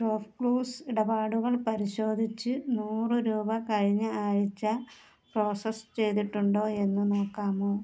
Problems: low volume